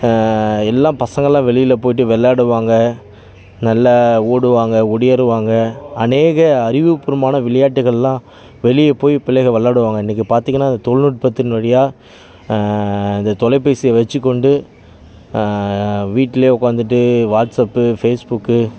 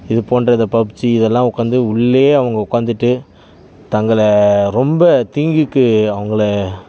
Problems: background sounds at intervals